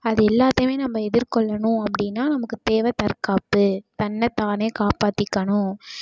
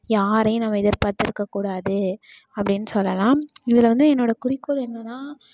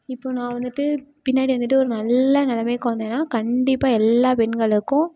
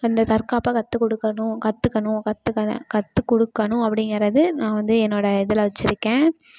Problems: constant background noise